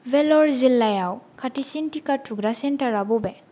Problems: none marked